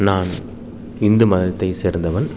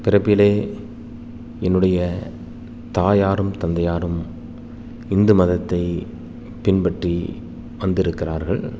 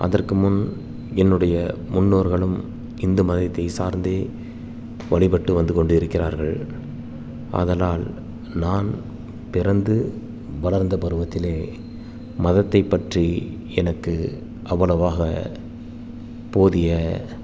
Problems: constant background noise